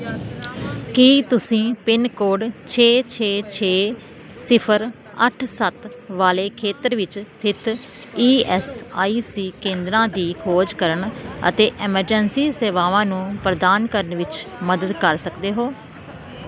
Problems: constant background noise